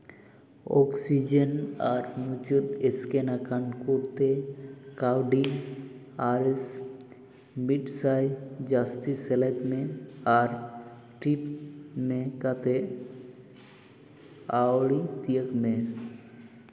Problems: echo